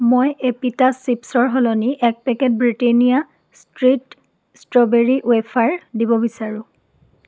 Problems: none marked